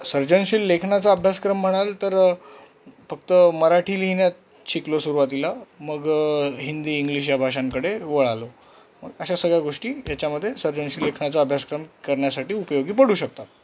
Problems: none marked